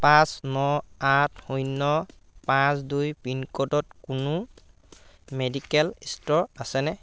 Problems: constant background noise